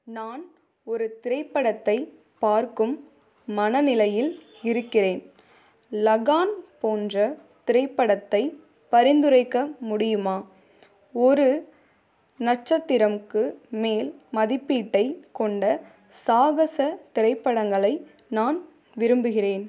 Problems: none marked